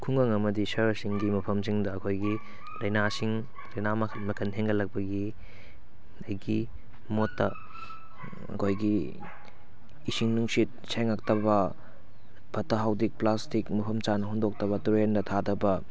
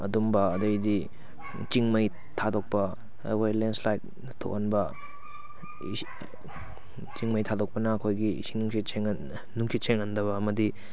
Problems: background sounds at intervals